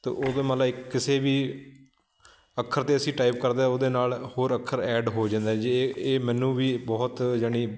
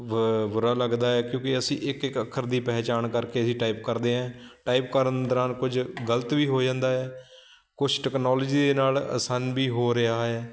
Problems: constant background noise